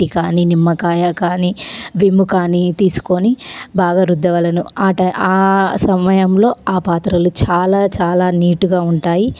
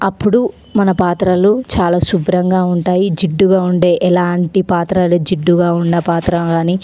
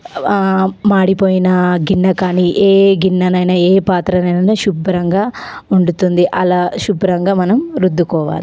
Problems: constant background noise, background conversations at intervals